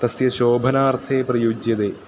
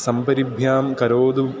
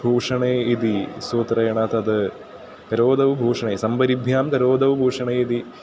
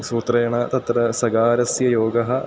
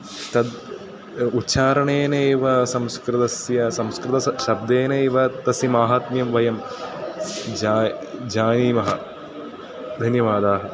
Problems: constant background noise, continuous background conversations